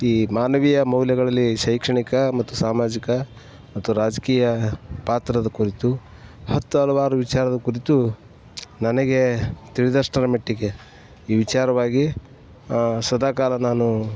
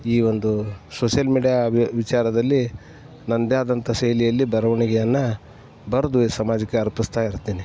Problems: none marked